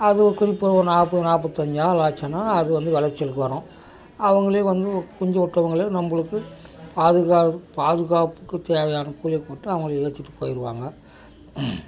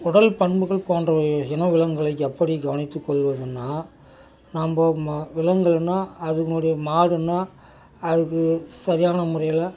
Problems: background conversations at intervals